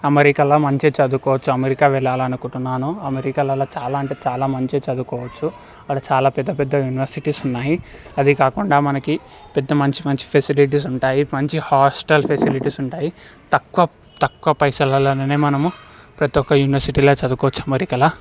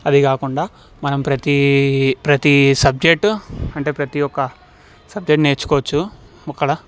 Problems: none marked